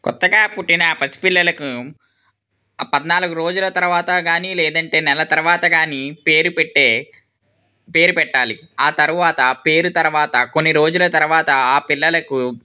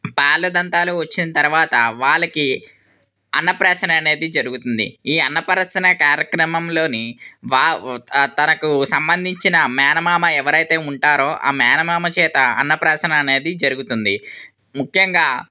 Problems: none marked